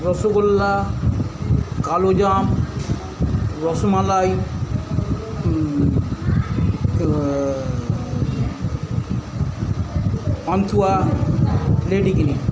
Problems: constant background noise, continuous background conversations